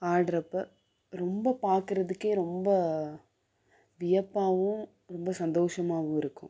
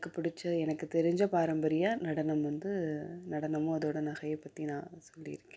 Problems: background sounds at intervals